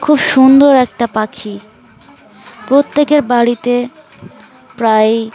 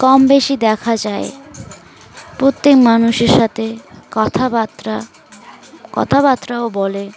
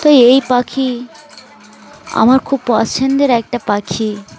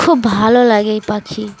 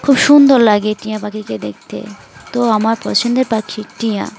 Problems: constant background noise, continuous background conversations